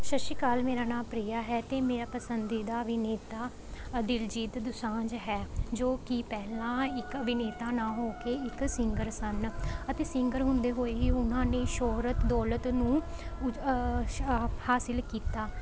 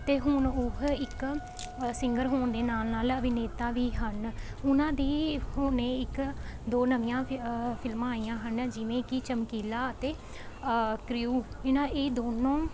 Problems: none marked